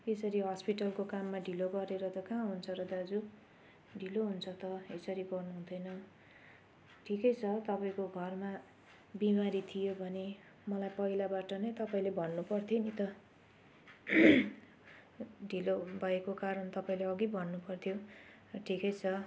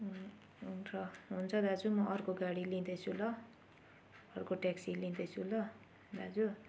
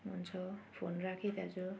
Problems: background sounds at intervals